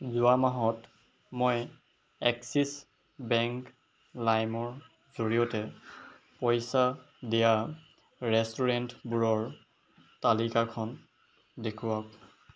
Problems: background sounds at intervals